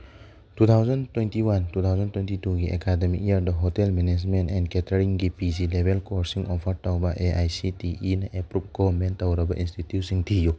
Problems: none marked